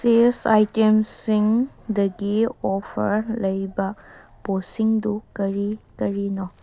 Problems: background sounds at intervals